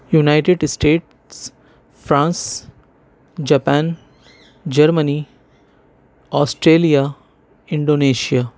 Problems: none marked